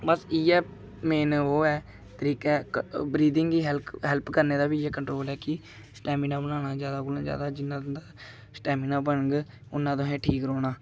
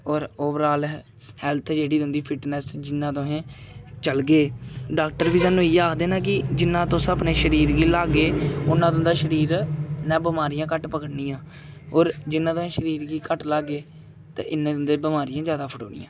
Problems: none marked